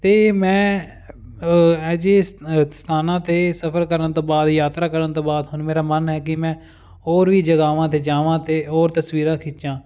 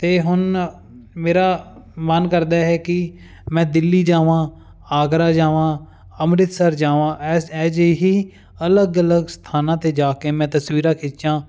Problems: none marked